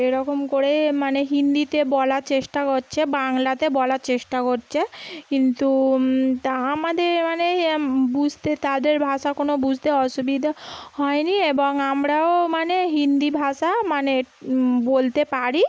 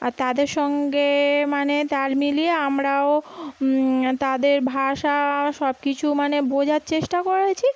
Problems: background sounds at intervals